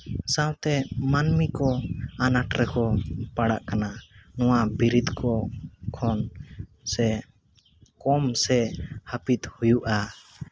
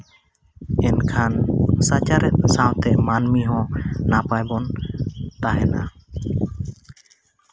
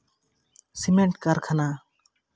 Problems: none marked